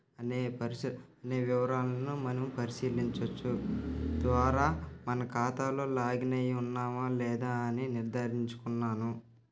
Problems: background sounds at intervals